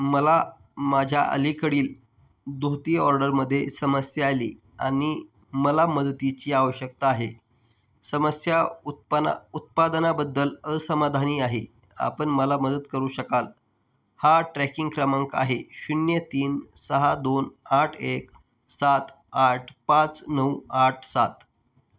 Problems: none marked